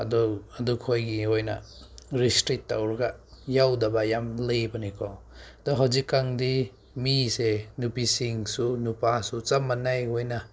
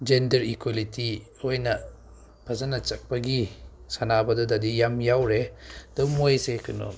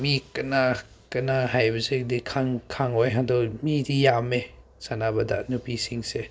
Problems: none marked